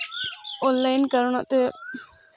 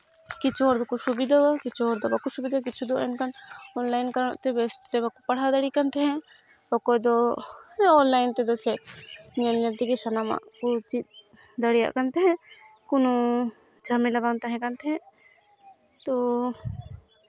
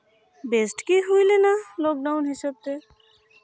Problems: background sounds at intervals, continuous background conversations